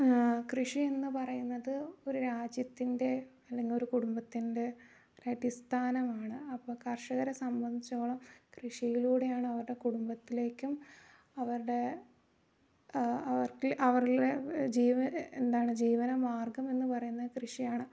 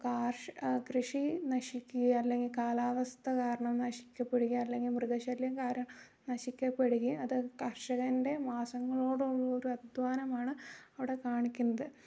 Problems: low volume